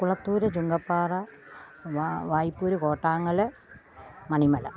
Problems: none marked